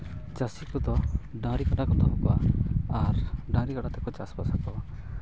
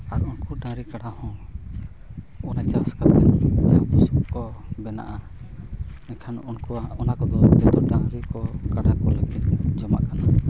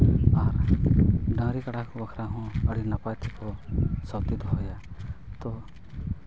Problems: background sounds at intervals